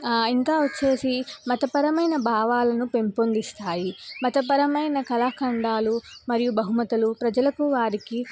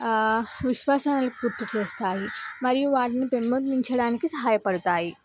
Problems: background sounds at intervals